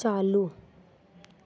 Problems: constant background noise